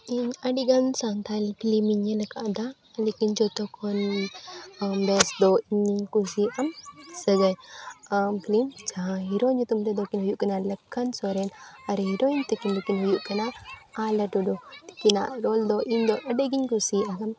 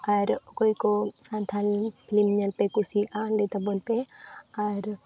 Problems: background conversations at intervals